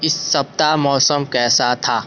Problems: constant background noise